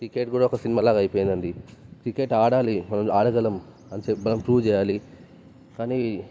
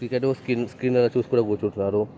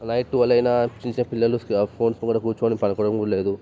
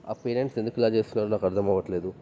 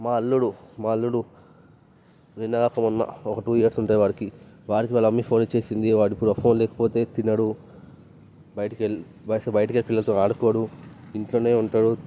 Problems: background sounds at intervals